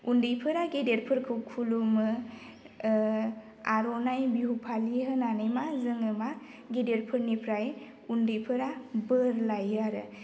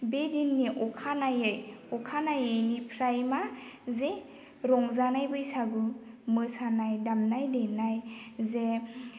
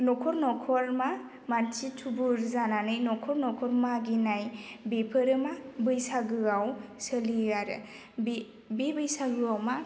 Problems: none marked